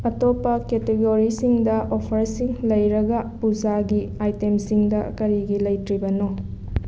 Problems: constant background noise